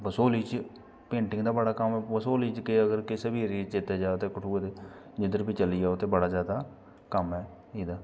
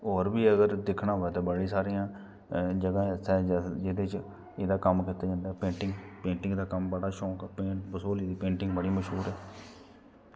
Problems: background sounds at intervals